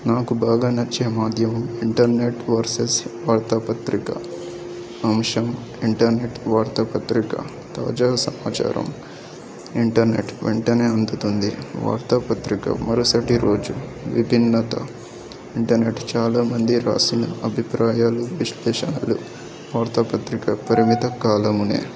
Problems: background conversations at intervals